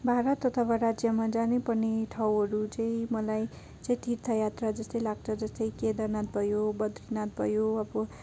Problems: none marked